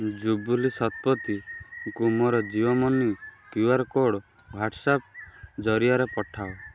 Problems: constant background noise